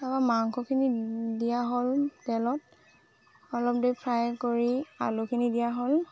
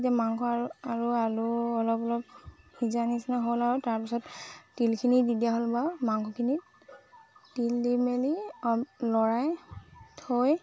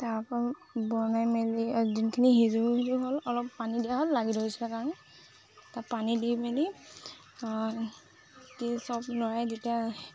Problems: constant background noise